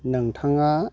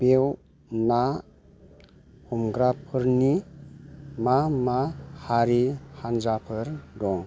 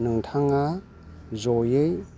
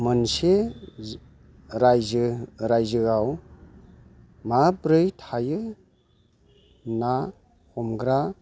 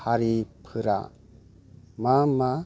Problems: constant background noise